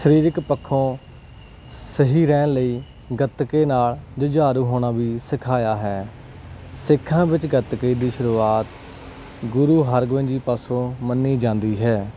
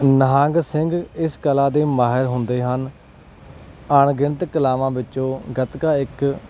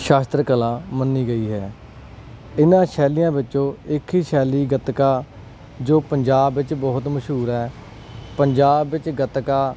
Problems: background sounds at intervals